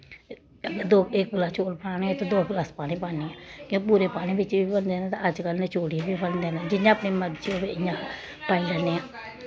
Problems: none marked